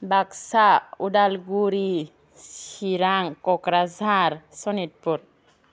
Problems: constant background noise